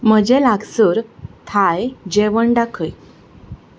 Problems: background sounds at intervals